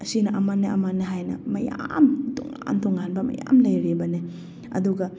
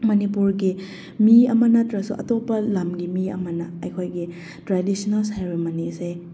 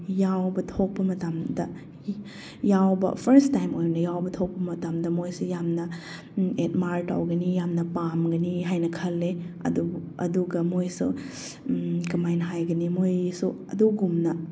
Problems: none marked